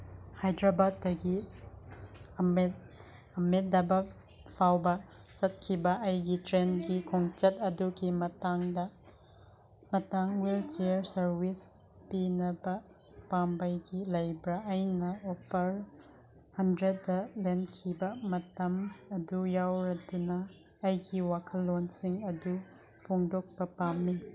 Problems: none marked